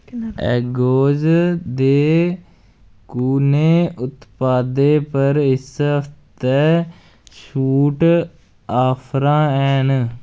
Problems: none marked